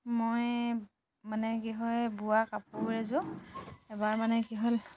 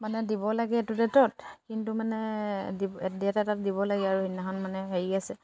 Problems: background sounds at intervals